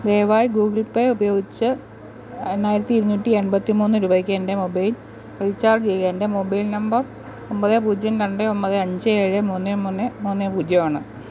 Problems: none marked